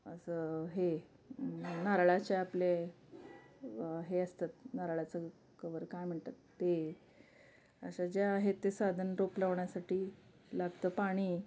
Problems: background sounds at intervals, background conversations at intervals